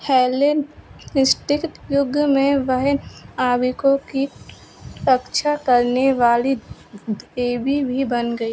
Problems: constant background noise